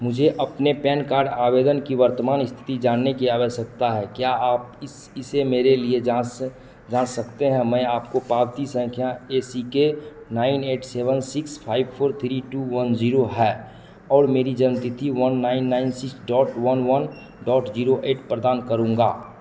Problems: echo